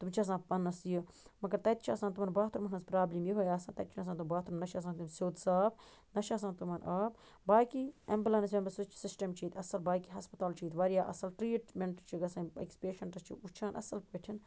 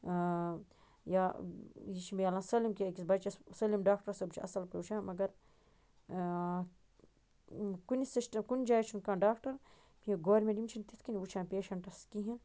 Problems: constant background noise